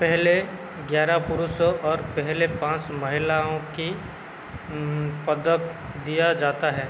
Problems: constant background noise